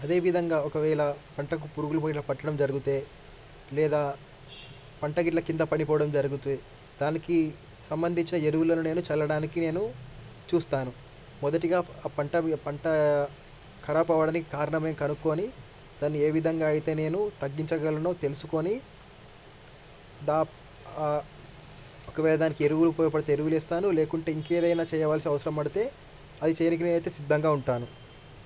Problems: background sounds at intervals